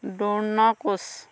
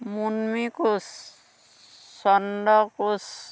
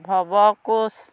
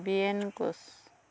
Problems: constant background noise